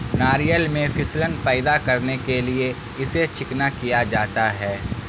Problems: constant background noise